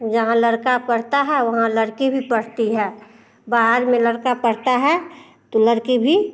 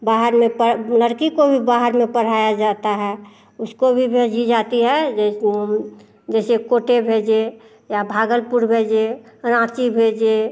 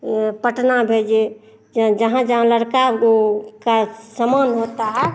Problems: none marked